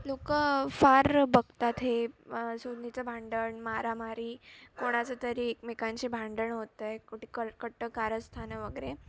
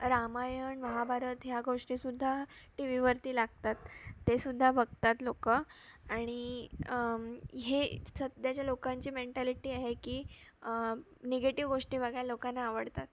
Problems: constant background noise, background conversations at intervals